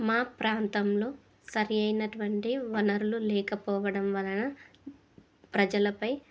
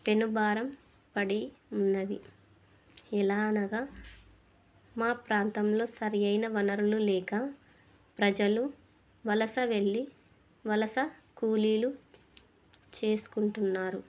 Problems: none marked